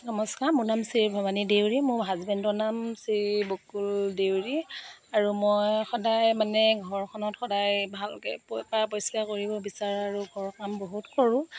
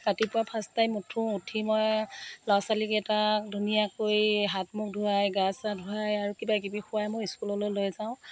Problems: none marked